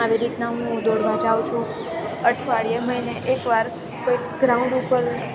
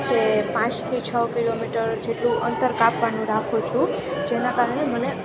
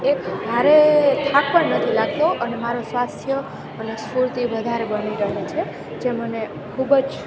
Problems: constant background noise